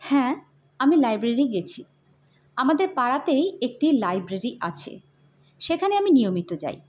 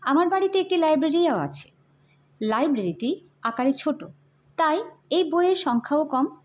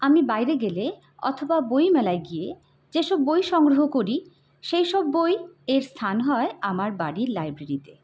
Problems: none marked